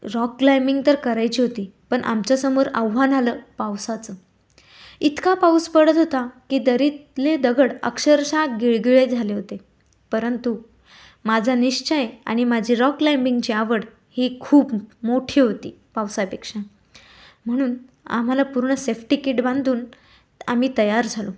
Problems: background sounds at intervals